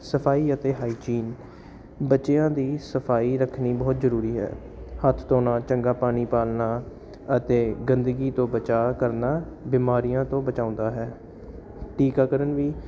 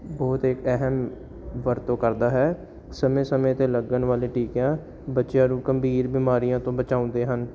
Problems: constant background noise